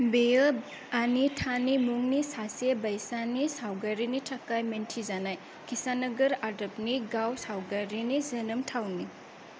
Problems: none marked